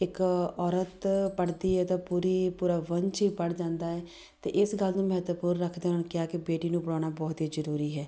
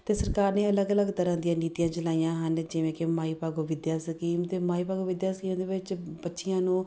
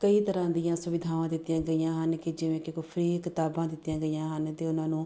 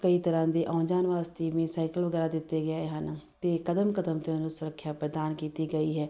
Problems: background sounds at intervals